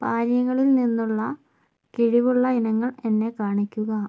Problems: low volume